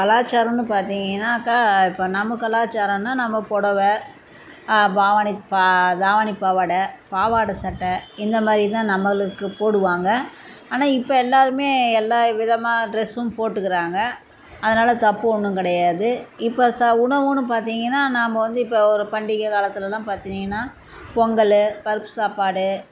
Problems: constant background noise